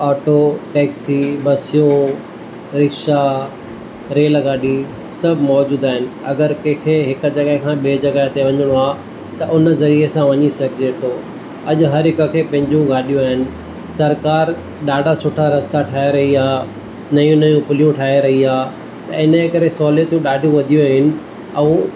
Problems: constant background noise